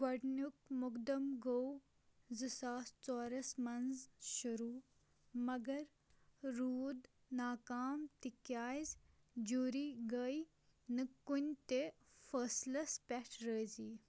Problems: background sounds at intervals